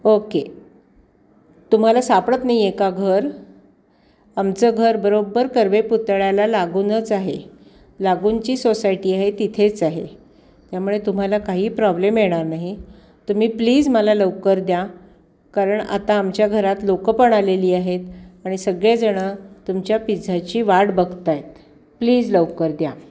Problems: background sounds at intervals